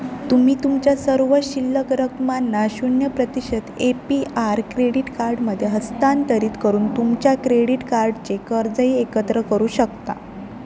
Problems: none marked